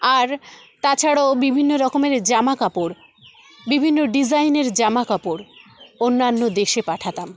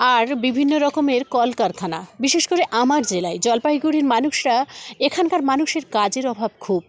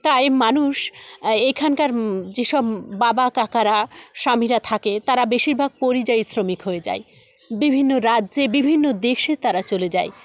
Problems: constant background noise, continuous background conversations